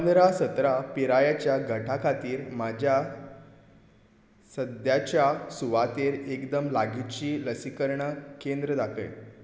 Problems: none marked